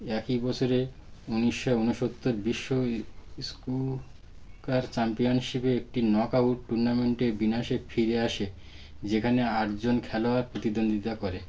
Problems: none marked